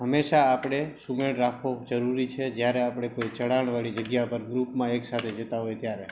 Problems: constant background noise